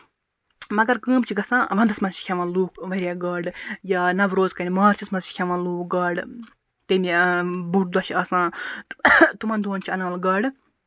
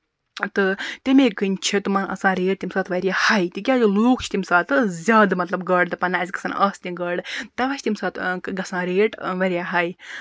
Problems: constant background noise